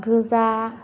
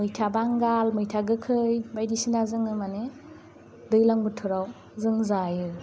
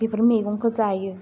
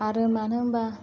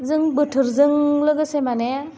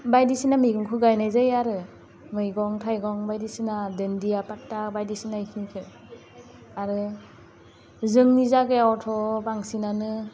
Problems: constant background noise